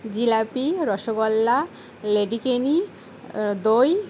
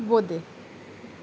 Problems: constant background noise